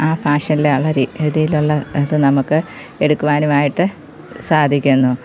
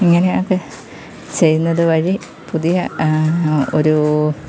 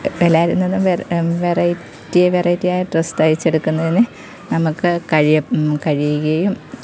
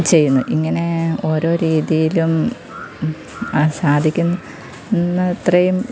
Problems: constant background noise